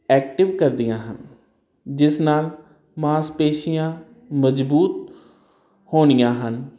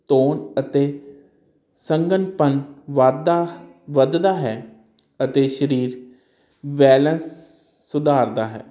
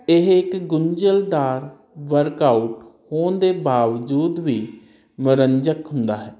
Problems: none marked